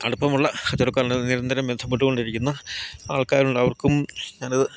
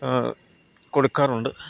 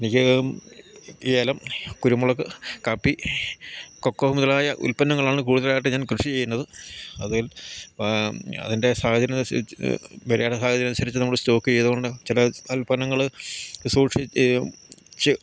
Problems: none marked